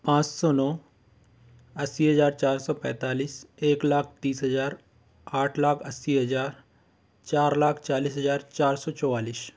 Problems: constant background noise